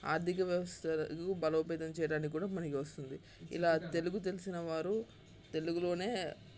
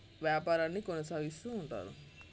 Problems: constant background noise, continuous background conversations